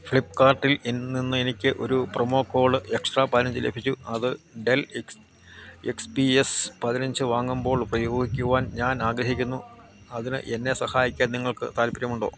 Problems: constant background noise